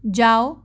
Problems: constant background noise